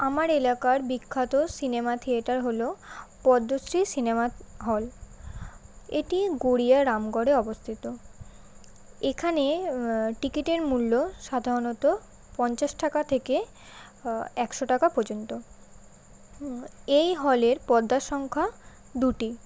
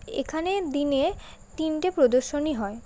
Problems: constant background noise